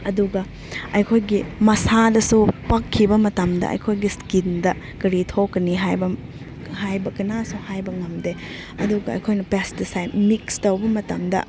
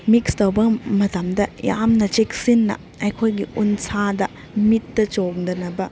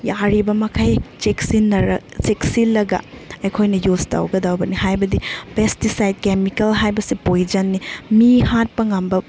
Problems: none marked